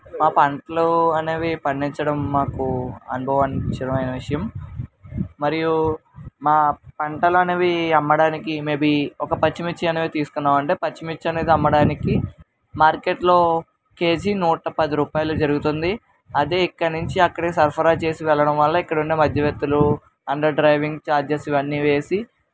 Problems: constant background noise, background conversations at intervals